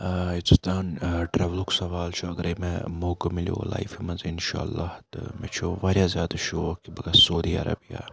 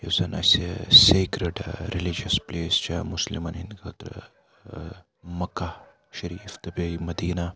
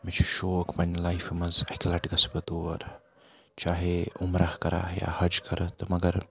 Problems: none marked